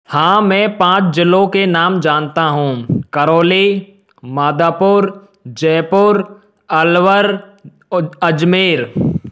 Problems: none marked